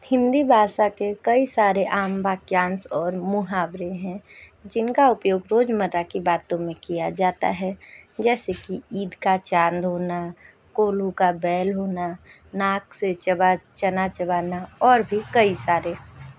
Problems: background sounds at intervals